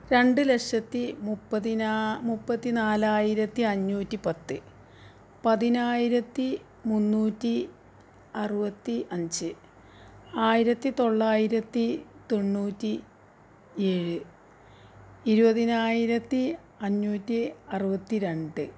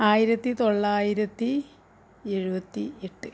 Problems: none marked